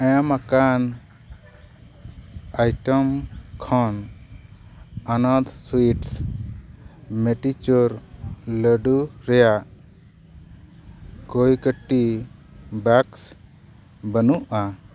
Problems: none marked